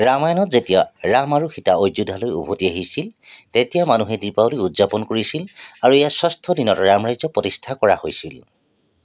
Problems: none marked